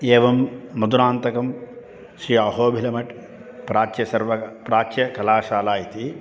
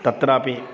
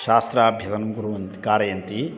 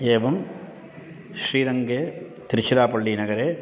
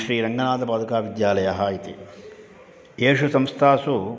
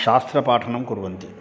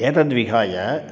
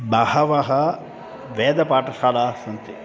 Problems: constant background noise